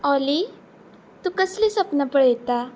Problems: none marked